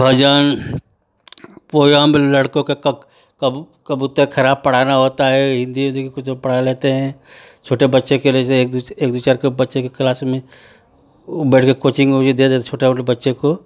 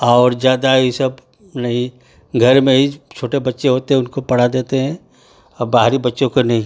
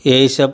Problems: none marked